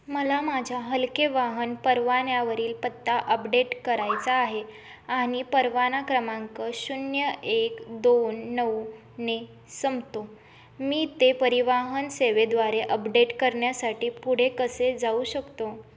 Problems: none marked